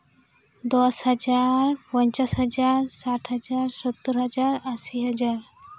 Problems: none marked